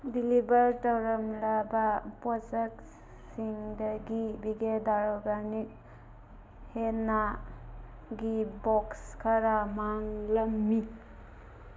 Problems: constant background noise